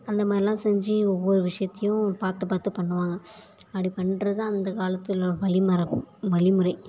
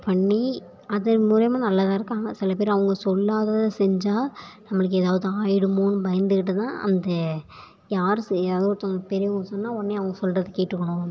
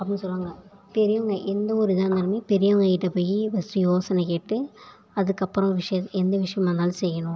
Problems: none marked